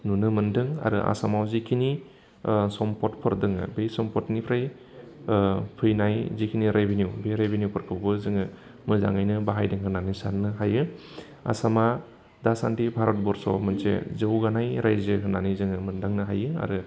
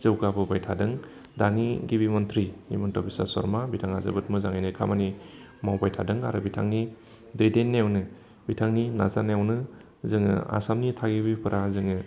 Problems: constant background noise